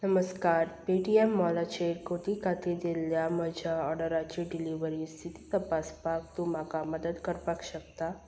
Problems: constant background noise